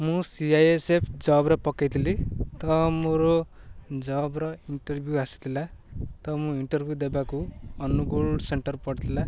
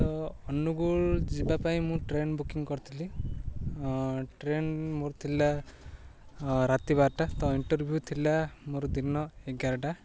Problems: none marked